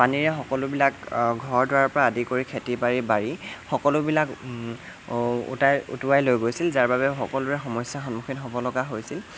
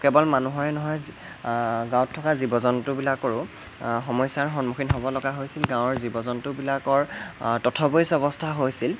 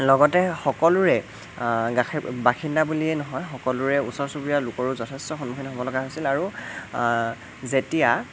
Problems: constant background noise